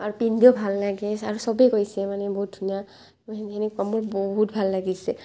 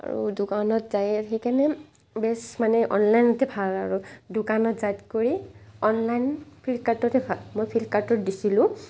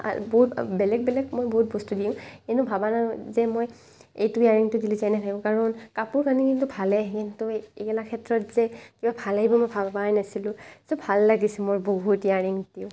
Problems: constant background noise